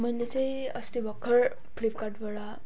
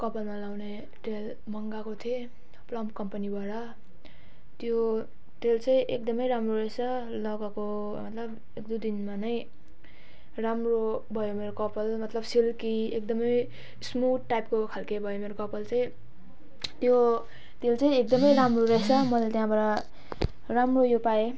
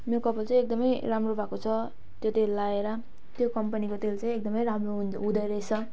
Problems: background sounds at intervals